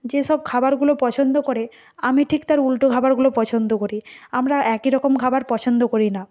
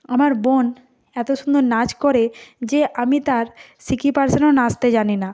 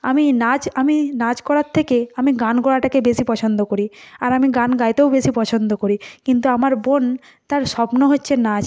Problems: none marked